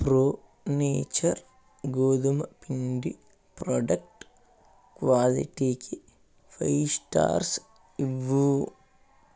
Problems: none marked